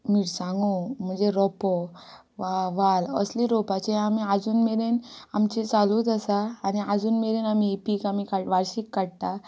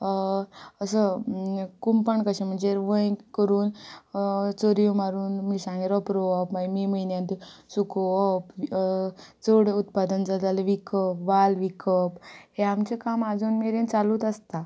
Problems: background conversations at intervals